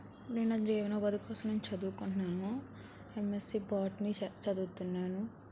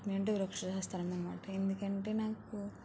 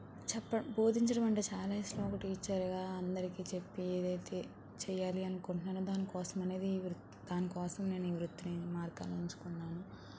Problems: constant background noise, low volume